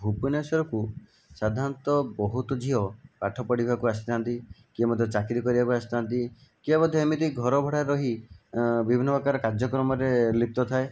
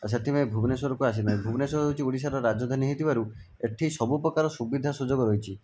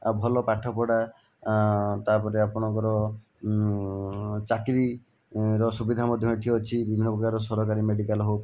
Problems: background sounds at intervals